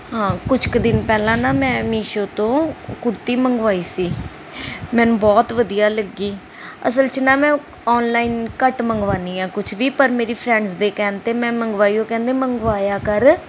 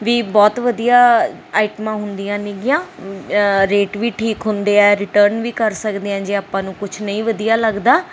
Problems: constant background noise